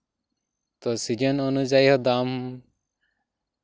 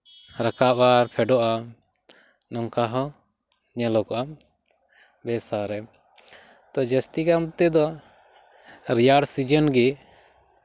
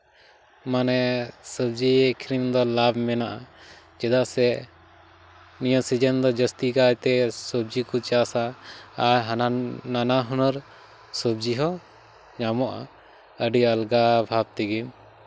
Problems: background sounds at intervals